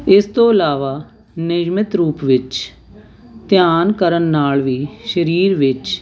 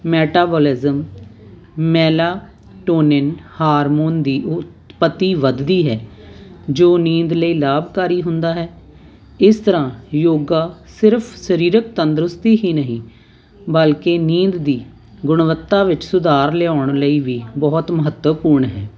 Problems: none marked